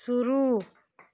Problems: background sounds at intervals